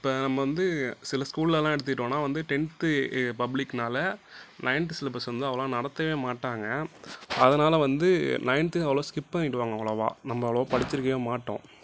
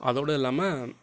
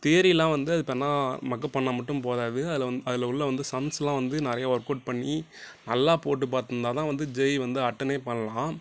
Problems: none marked